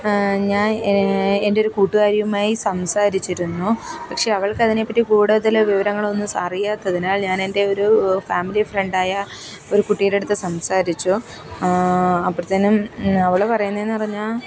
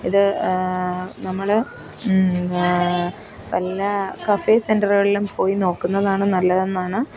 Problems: background conversations at intervals